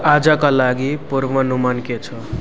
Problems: constant background noise